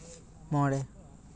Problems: background conversations at intervals